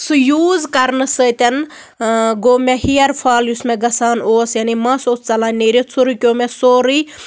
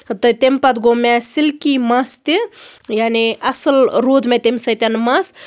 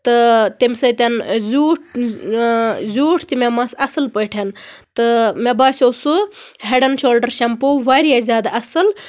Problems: constant background noise